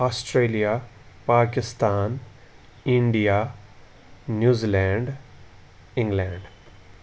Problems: background sounds at intervals